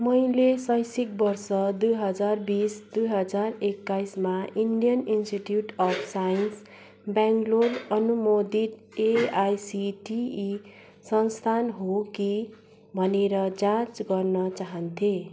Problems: constant background noise, background conversations at intervals